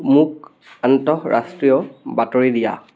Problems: continuous background conversations